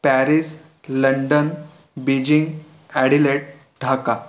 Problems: background sounds at intervals